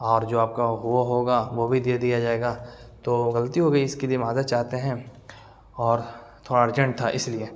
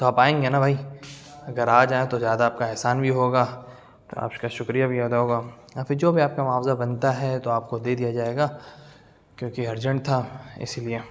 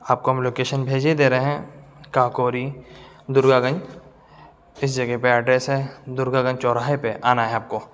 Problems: background sounds at intervals